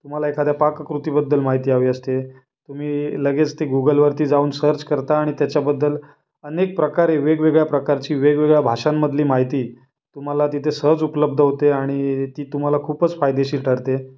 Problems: none marked